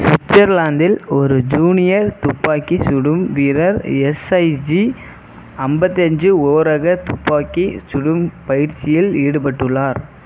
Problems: background sounds at intervals